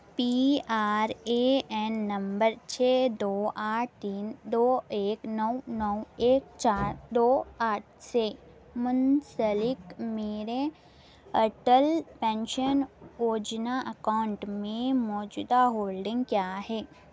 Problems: none marked